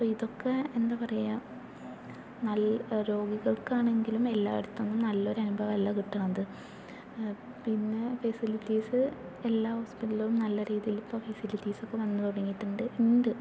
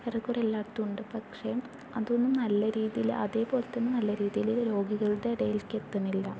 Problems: none marked